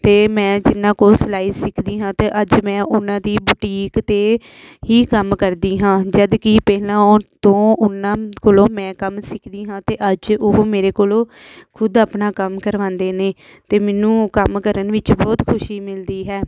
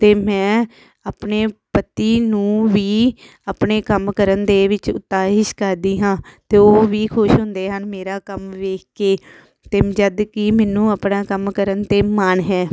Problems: none marked